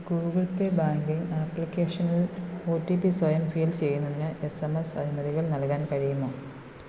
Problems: constant background noise, low volume